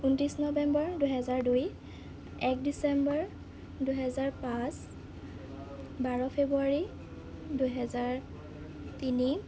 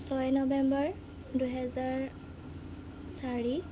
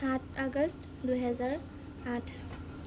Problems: none marked